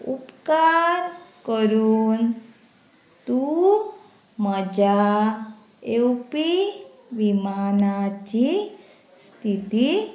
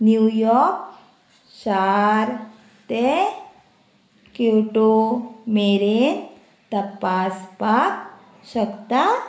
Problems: constant background noise